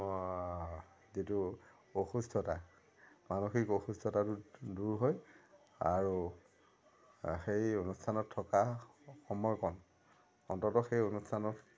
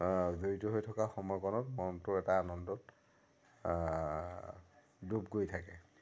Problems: none marked